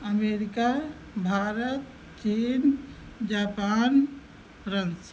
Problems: none marked